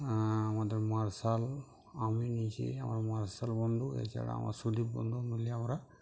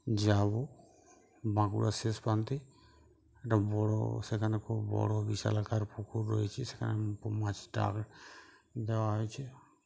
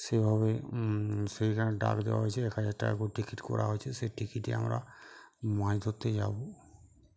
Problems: background sounds at intervals